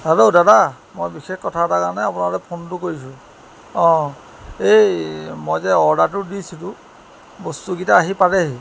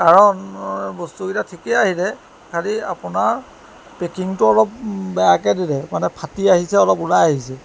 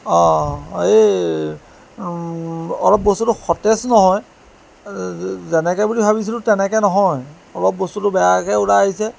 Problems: constant background noise